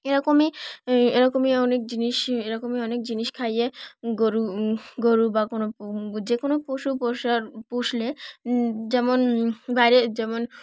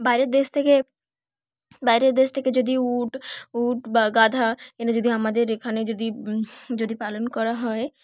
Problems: background sounds at intervals